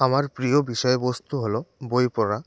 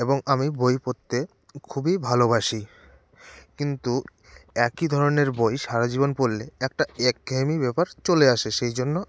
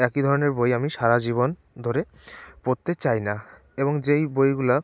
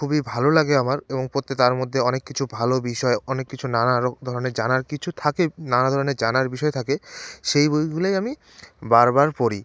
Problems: none marked